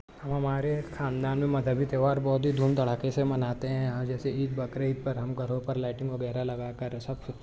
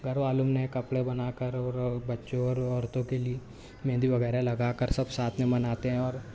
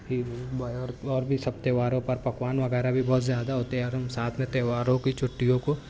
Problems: none marked